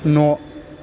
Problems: constant background noise